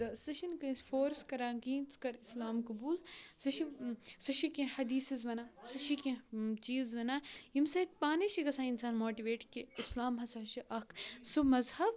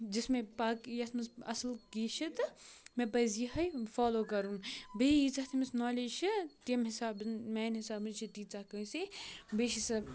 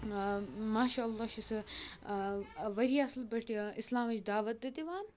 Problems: none marked